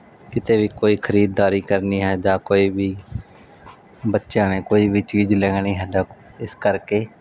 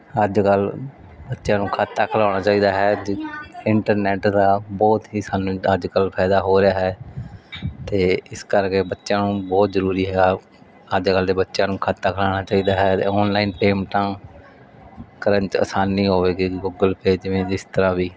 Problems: background sounds at intervals, background conversations at intervals